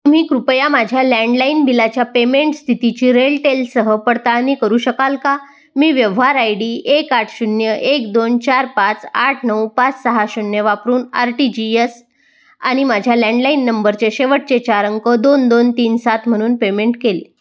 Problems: none marked